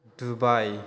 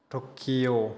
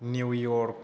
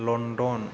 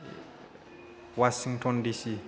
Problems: none marked